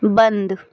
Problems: none marked